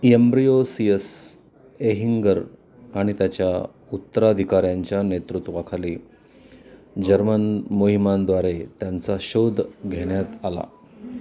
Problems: constant background noise, background conversations at intervals